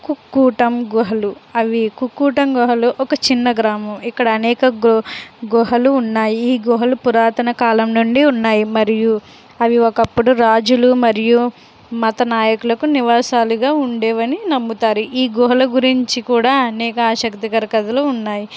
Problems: none marked